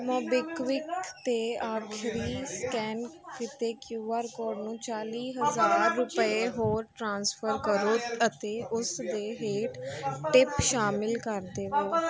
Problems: continuous background conversations